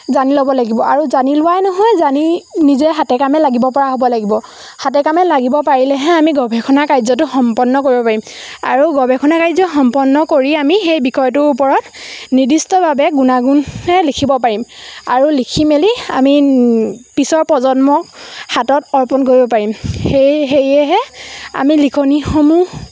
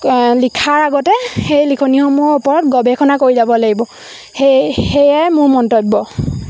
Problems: constant background noise, background conversations at intervals